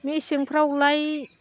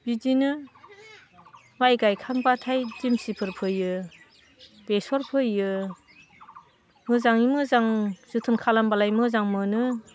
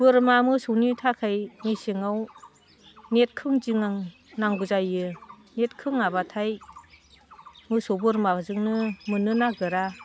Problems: constant background noise